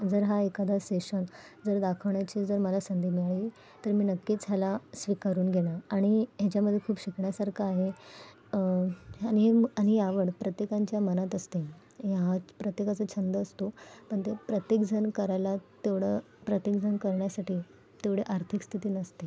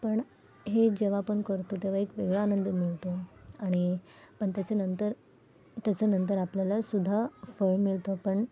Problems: background sounds at intervals